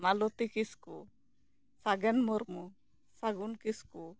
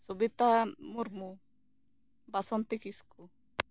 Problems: none marked